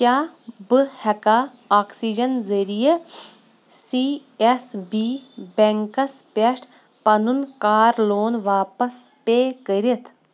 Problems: constant background noise